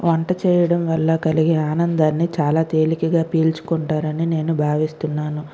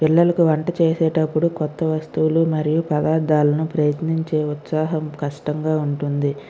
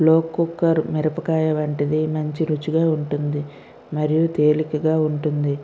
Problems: none marked